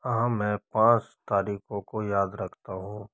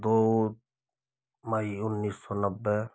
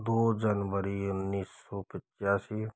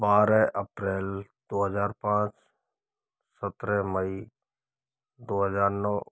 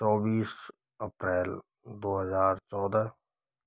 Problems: low volume